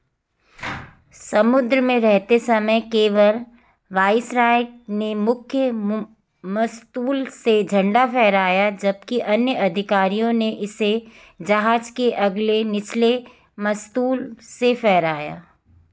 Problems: none marked